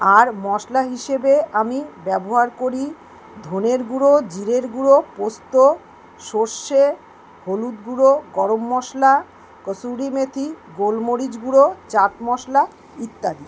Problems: none marked